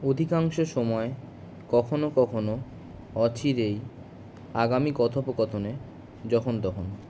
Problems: none marked